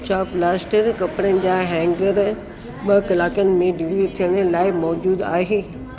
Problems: constant background noise